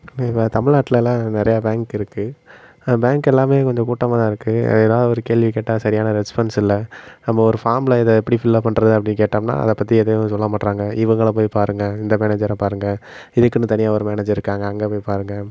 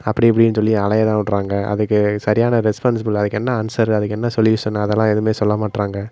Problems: constant background noise